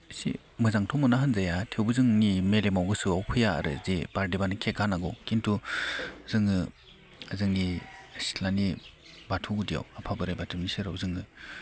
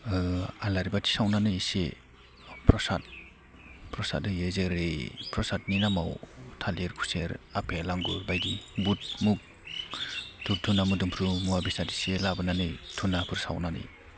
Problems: none marked